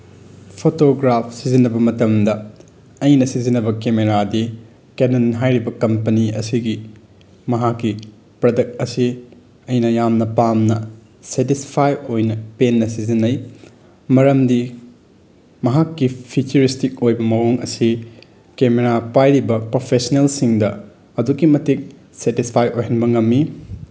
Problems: background sounds at intervals